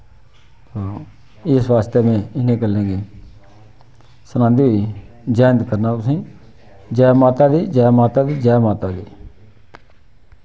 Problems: none marked